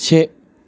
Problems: constant background noise